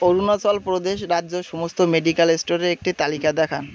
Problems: constant background noise